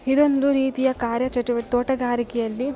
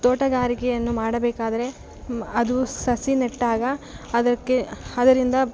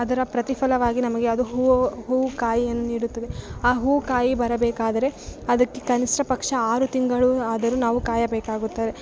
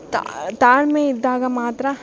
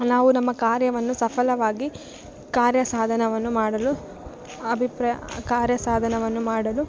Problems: background sounds at intervals